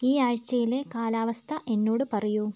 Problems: none marked